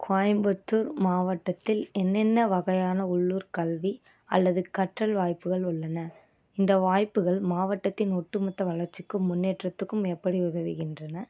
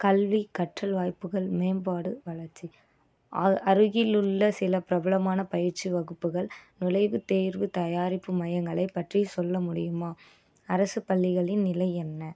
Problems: none marked